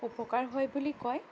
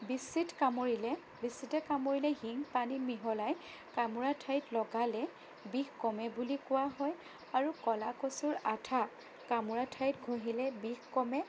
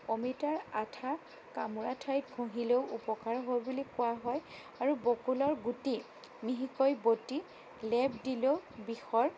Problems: constant background noise, low volume